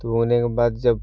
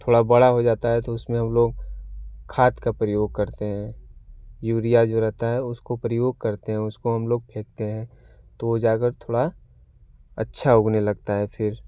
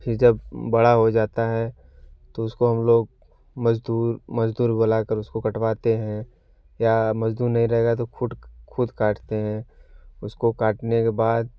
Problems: none marked